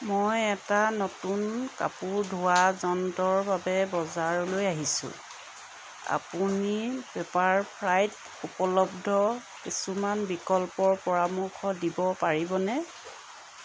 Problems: background sounds at intervals